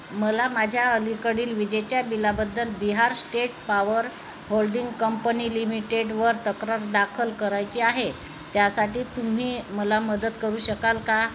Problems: constant background noise